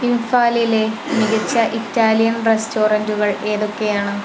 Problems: constant background noise